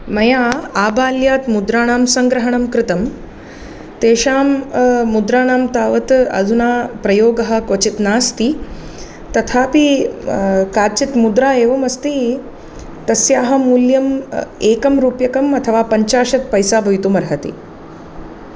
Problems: none marked